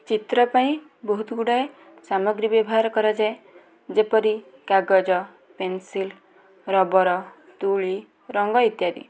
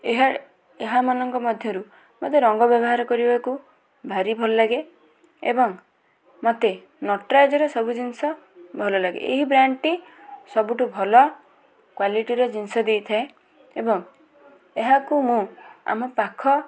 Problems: background conversations at intervals